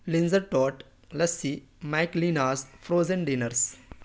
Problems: none marked